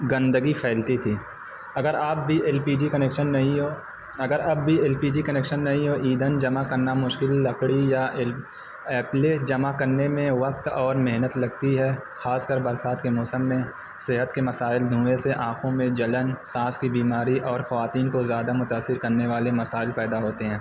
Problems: constant background noise